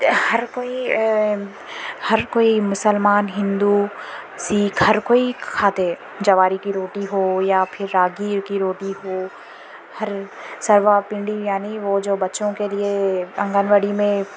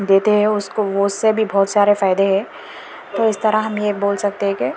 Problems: constant background noise, background conversations at intervals